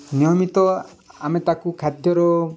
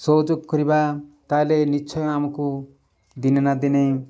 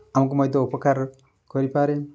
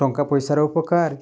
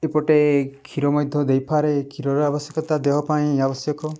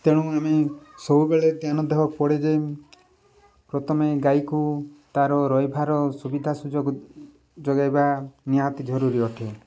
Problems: background sounds at intervals